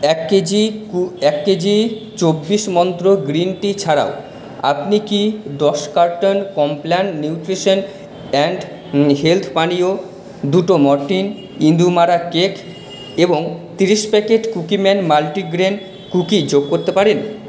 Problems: constant background noise, echo